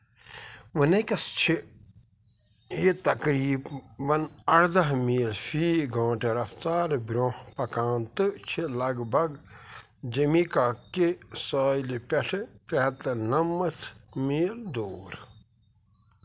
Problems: constant background noise